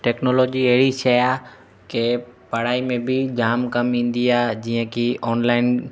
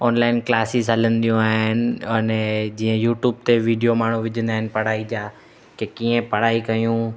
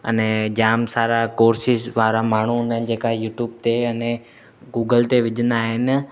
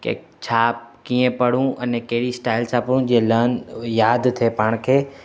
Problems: constant background noise, echo